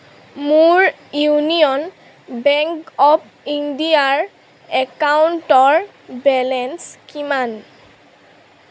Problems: none marked